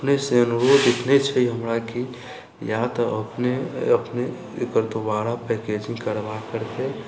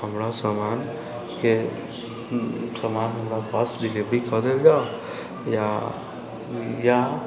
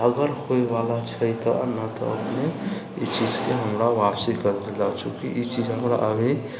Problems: constant background noise